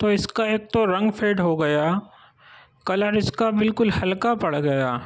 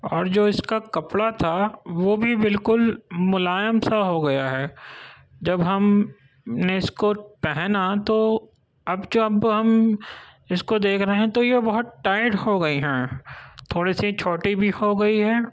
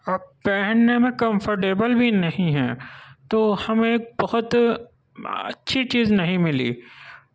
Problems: none marked